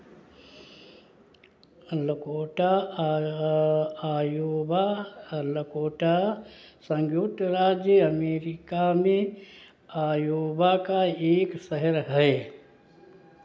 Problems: none marked